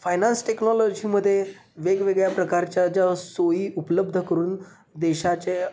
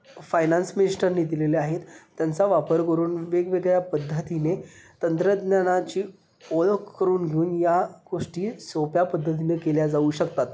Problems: background sounds at intervals